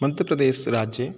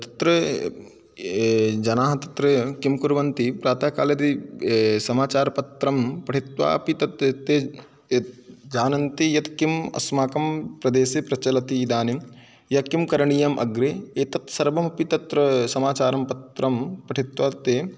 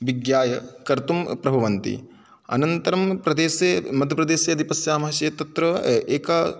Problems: background sounds at intervals